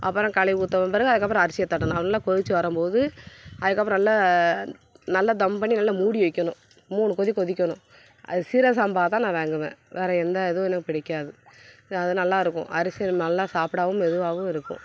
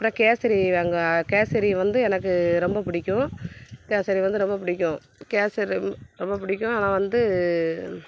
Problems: background sounds at intervals